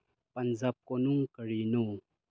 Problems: low volume